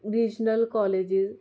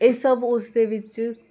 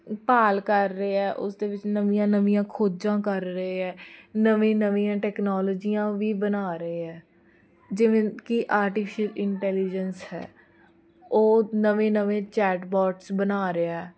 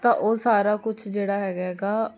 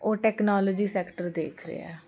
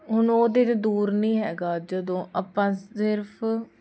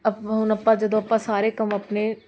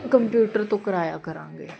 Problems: none marked